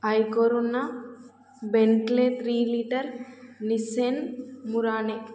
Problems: background sounds at intervals